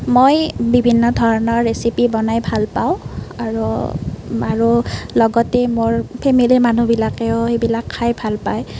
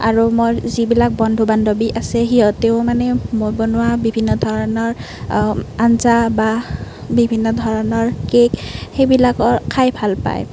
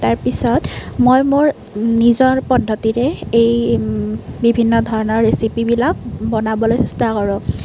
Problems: constant background noise